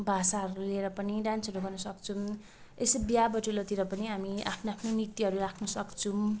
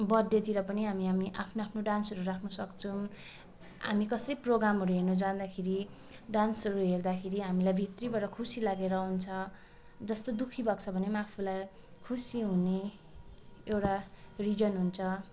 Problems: constant background noise, background conversations at intervals